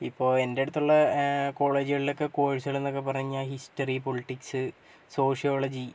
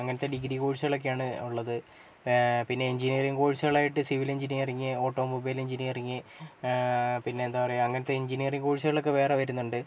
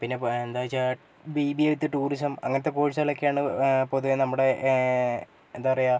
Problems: low volume